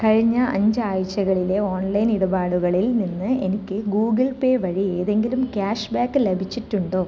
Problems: none marked